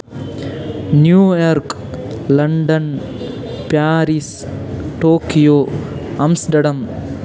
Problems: constant background noise